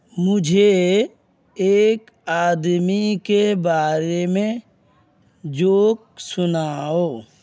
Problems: none marked